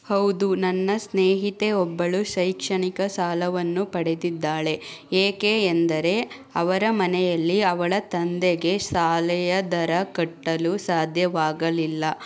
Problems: none marked